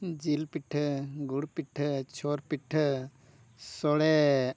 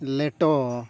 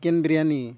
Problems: none marked